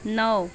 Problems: none marked